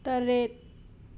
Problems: constant background noise